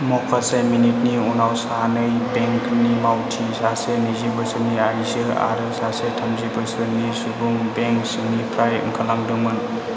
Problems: constant background noise